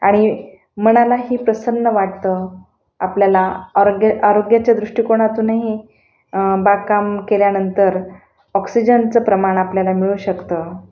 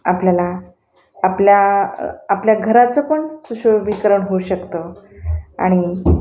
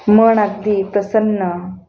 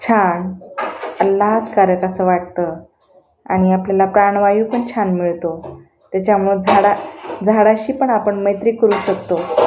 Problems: none marked